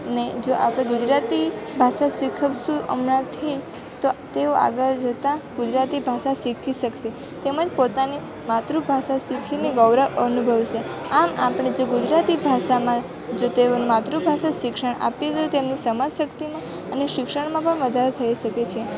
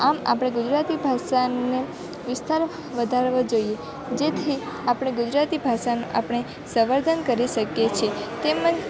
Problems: constant background noise